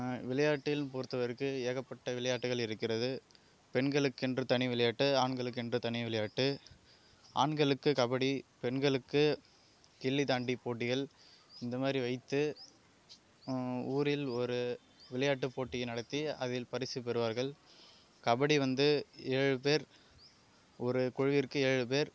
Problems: constant background noise